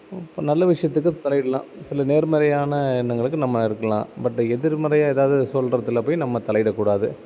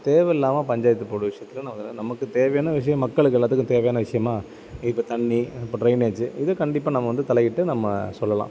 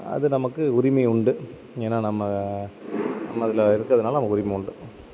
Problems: constant background noise